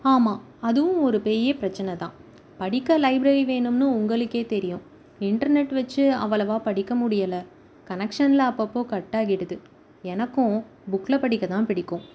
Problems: background sounds at intervals